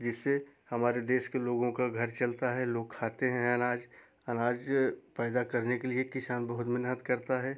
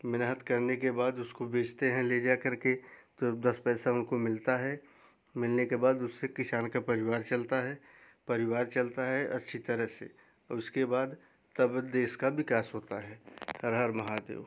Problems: background sounds at intervals